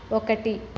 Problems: constant background noise